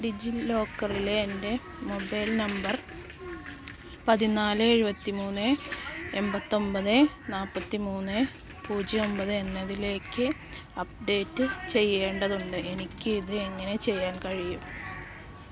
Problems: constant background noise